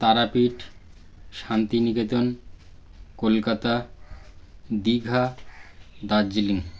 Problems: constant background noise